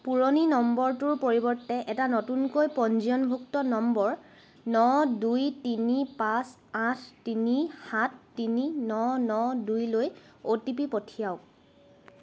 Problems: none marked